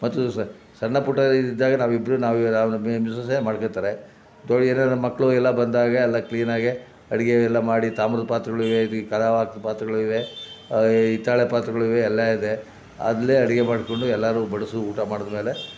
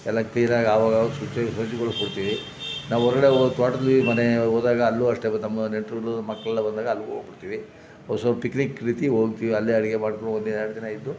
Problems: background sounds at intervals